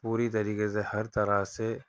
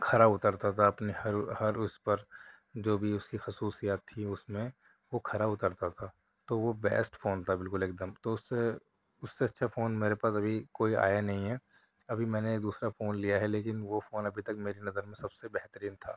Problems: none marked